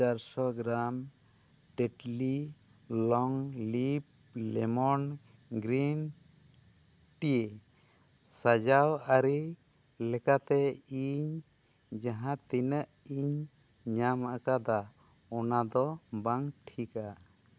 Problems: none marked